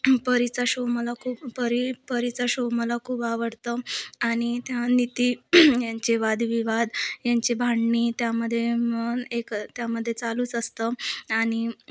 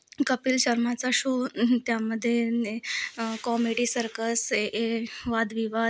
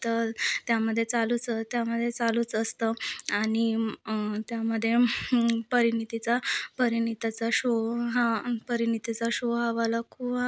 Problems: none marked